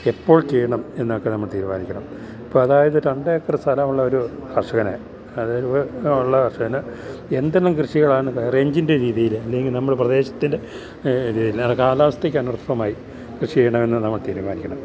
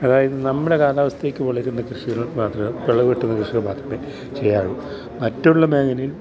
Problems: constant background noise